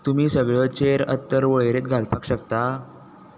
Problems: constant background noise